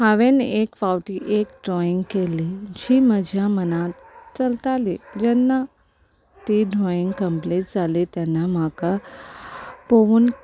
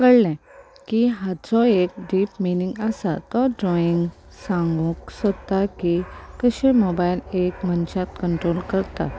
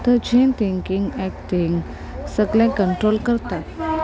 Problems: constant background noise